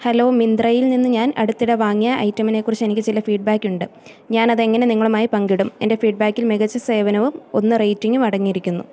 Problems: none marked